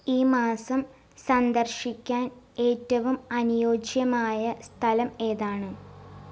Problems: background sounds at intervals